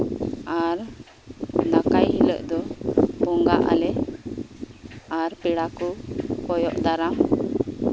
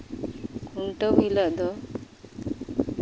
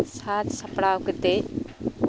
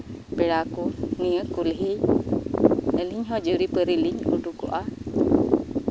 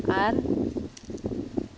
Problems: none marked